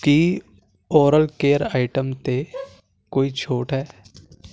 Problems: constant background noise